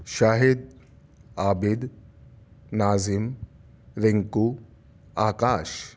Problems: none marked